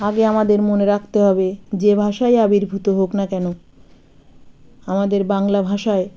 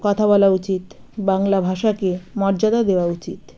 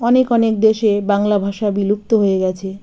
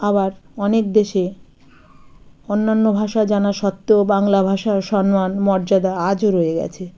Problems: background sounds at intervals, continuous background conversations